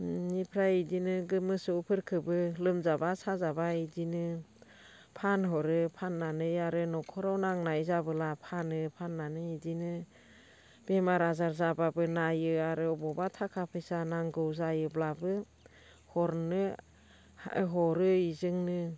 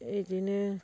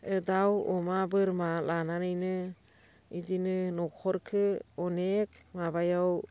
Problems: constant background noise